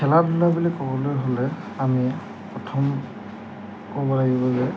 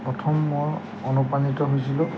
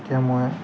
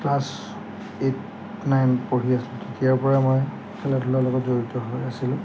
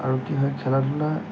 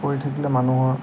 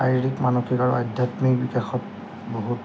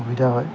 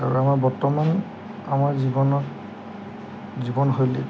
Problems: background sounds at intervals